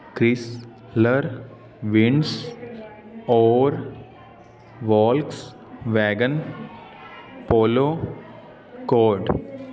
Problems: constant background noise